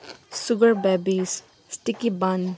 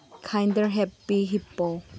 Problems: constant background noise